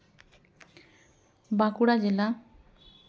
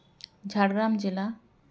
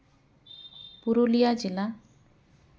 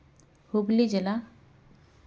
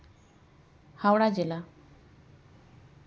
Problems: background conversations at intervals